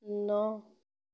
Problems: none marked